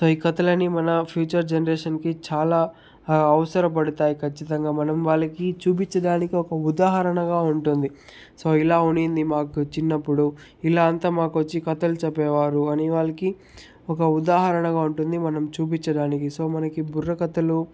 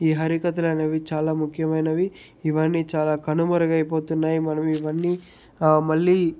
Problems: none marked